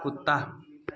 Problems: none marked